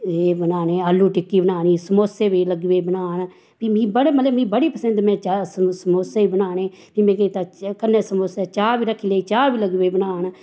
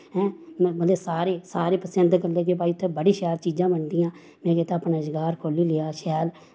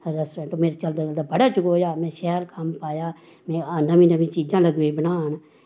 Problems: background sounds at intervals